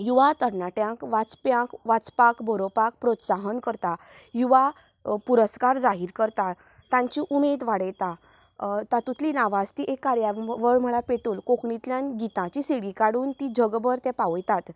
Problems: background sounds at intervals